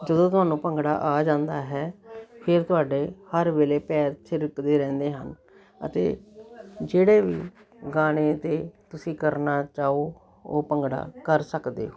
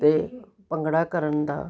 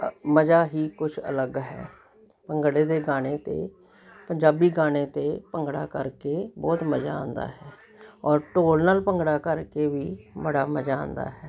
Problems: continuous background conversations